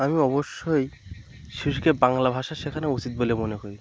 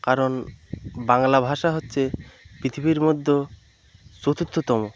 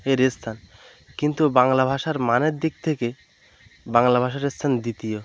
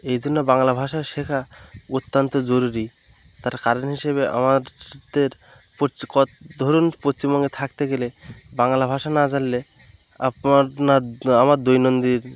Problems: none marked